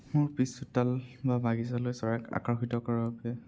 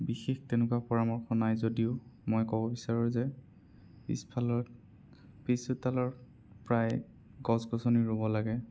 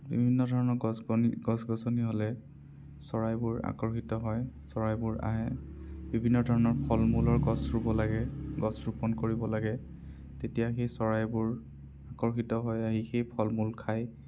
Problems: none marked